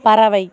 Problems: continuous background conversations